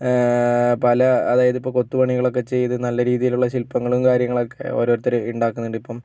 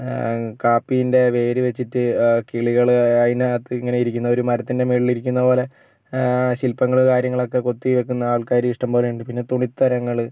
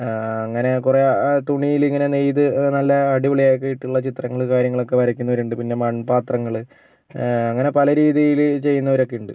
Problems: none marked